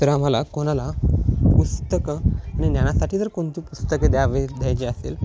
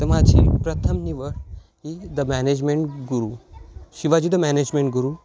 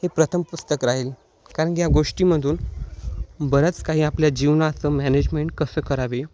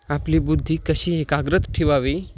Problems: none marked